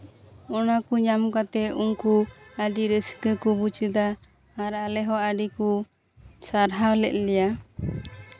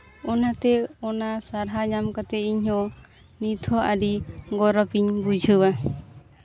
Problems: constant background noise, continuous background conversations